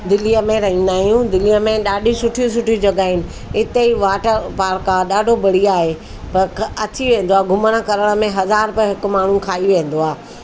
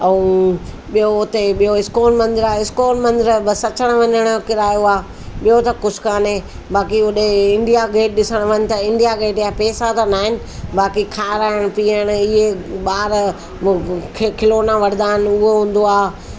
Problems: constant background noise